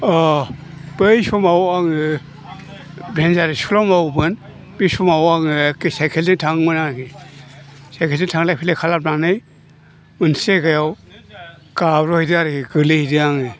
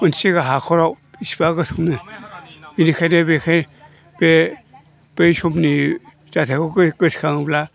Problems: low volume